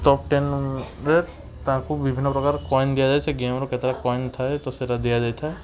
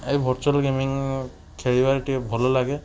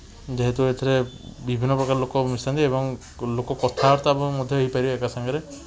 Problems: constant background noise